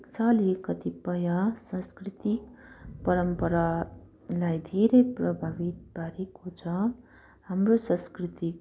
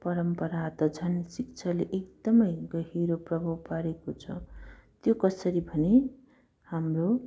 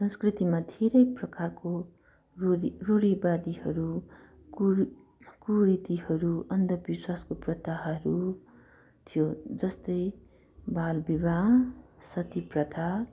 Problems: none marked